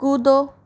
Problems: none marked